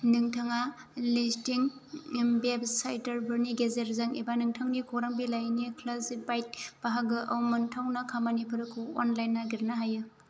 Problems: low volume